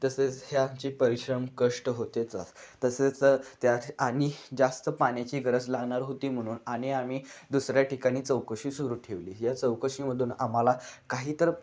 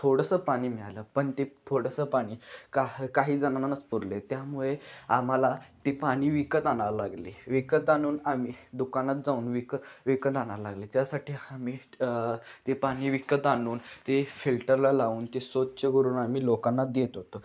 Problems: constant background noise